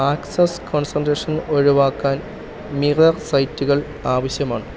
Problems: none marked